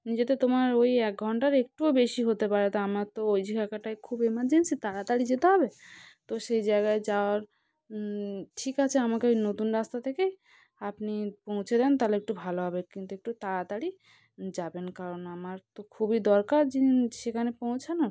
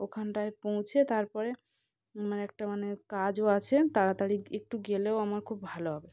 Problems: constant background noise, background conversations at intervals